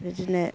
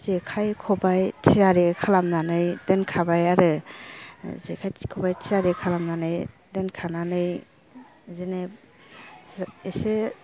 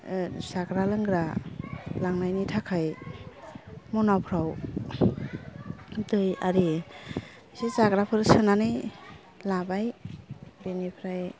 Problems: low volume